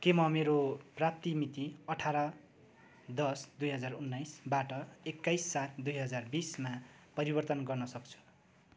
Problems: none marked